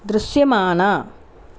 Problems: none marked